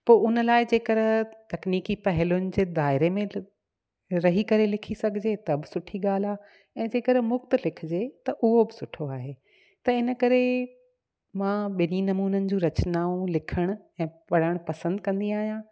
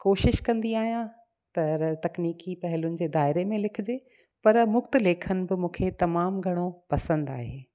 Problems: echo